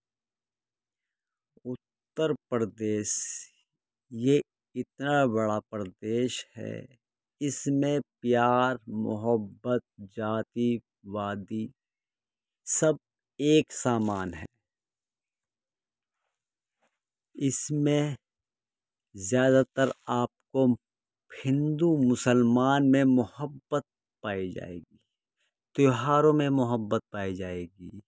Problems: background sounds at intervals